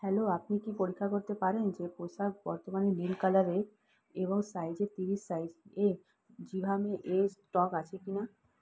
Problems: low volume